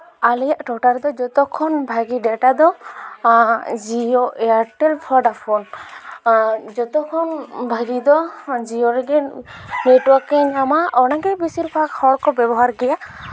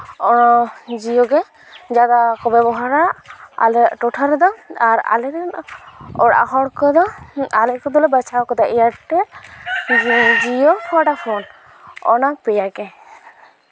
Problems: none marked